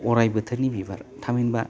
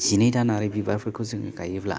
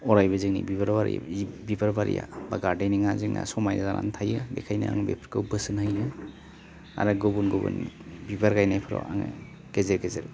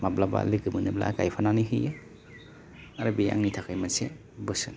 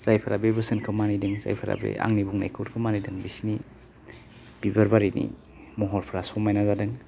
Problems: low volume